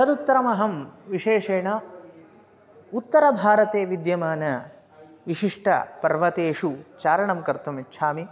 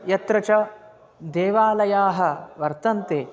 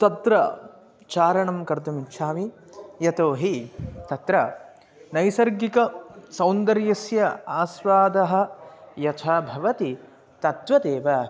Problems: constant background noise